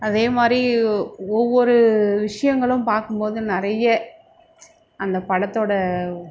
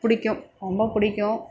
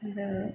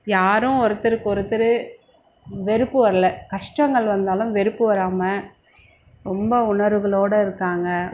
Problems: constant background noise